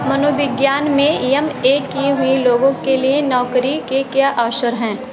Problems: constant background noise